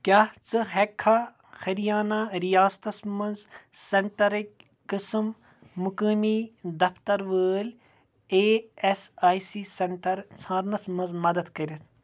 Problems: none marked